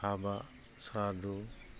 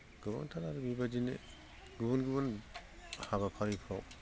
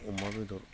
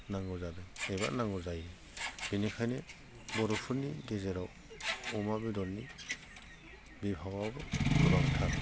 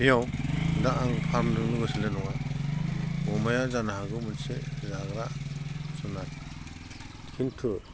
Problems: constant background noise